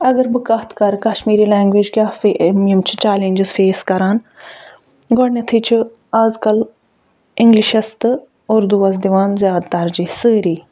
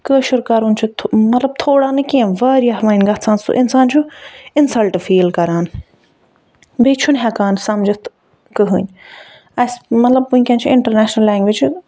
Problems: none marked